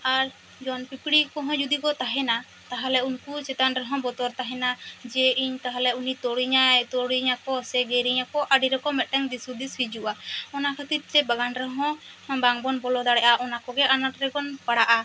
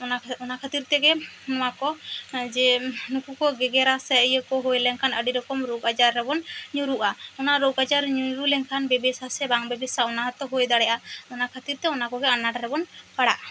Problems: constant background noise